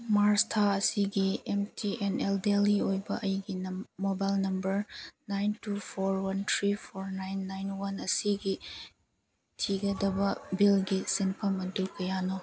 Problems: background sounds at intervals